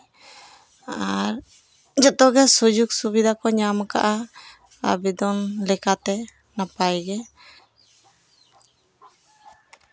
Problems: constant background noise